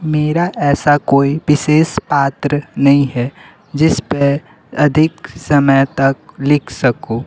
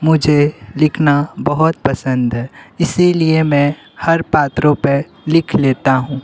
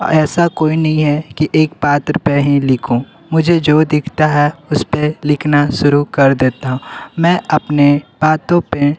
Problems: constant background noise, background conversations at intervals